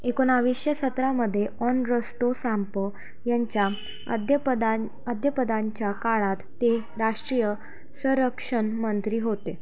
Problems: background sounds at intervals